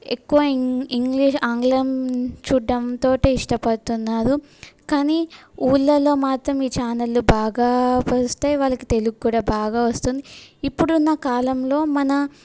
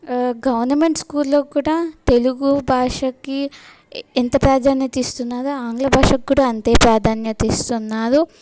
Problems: background sounds at intervals